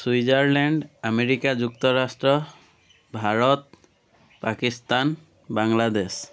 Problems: background sounds at intervals